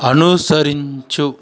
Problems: constant background noise, continuous background conversations